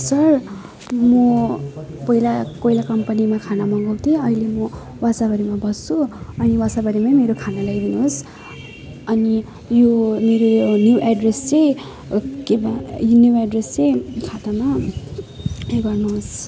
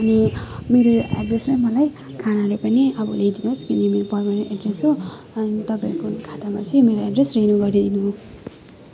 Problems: constant background noise